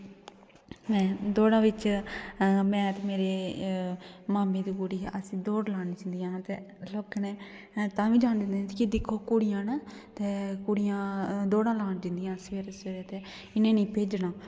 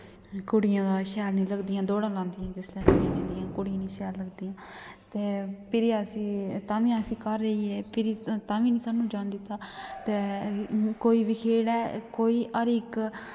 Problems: none marked